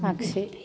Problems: background conversations at intervals